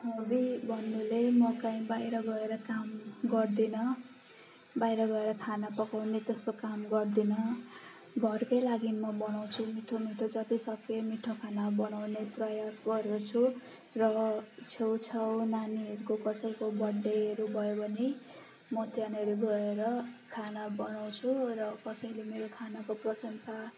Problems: constant background noise